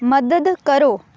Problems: background sounds at intervals